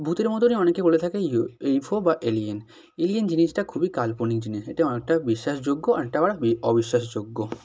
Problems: none marked